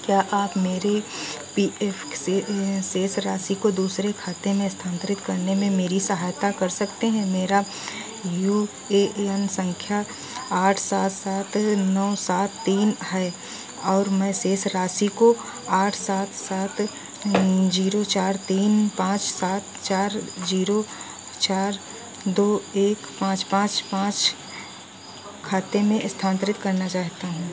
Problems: none marked